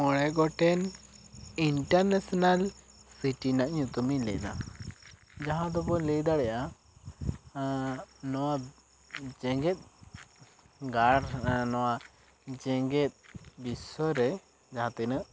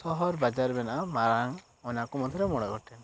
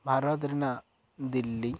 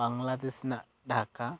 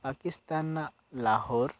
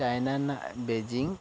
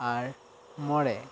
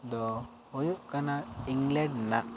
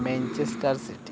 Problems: background sounds at intervals